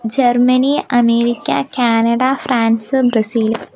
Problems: background sounds at intervals